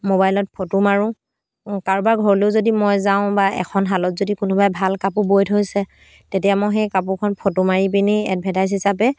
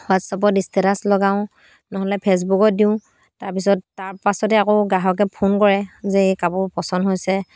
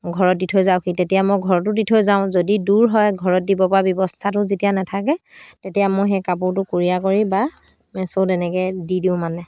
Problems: constant background noise